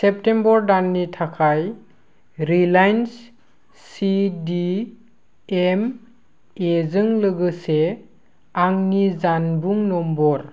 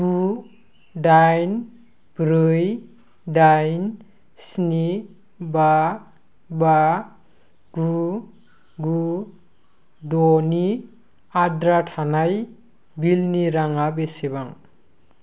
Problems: constant background noise